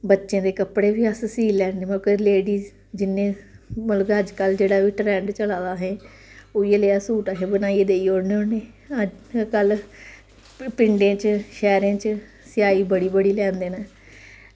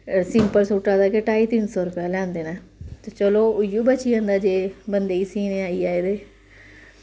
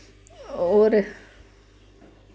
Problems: constant background noise